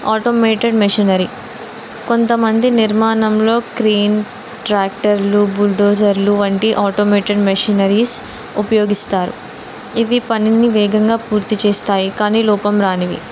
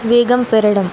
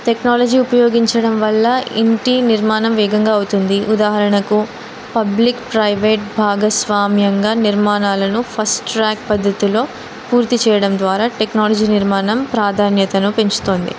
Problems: none marked